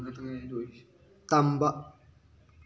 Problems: background conversations at intervals